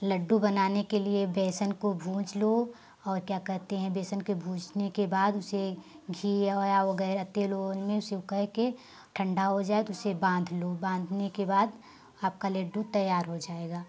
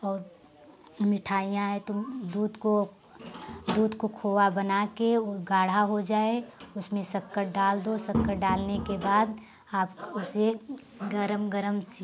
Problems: constant background noise